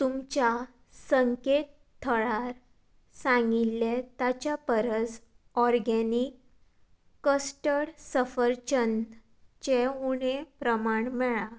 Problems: constant background noise